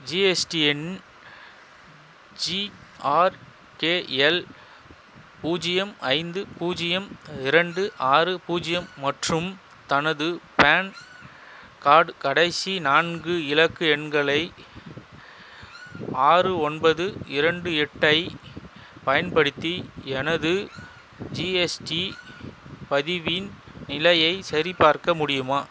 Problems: constant background noise